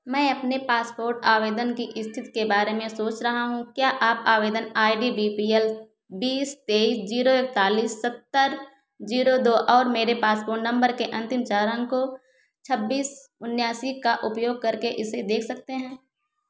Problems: echo